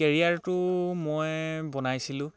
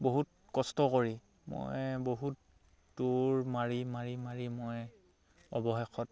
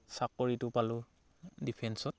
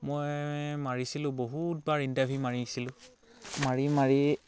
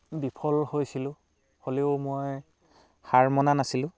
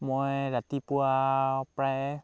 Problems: none marked